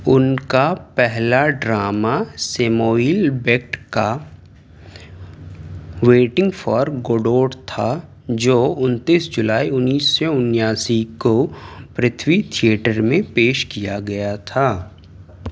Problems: background sounds at intervals